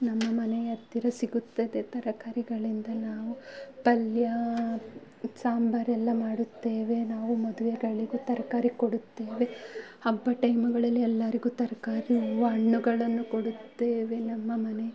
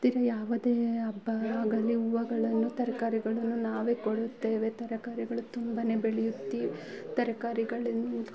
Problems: low volume